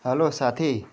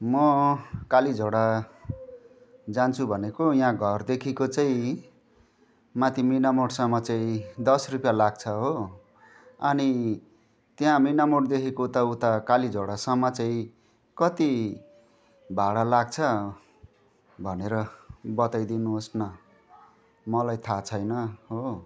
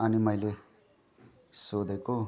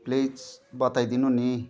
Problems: constant background noise, continuous background conversations